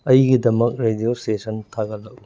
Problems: background sounds at intervals, low volume